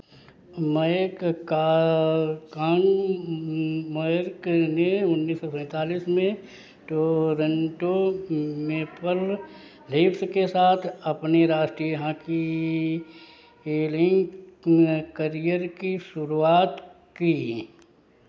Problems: none marked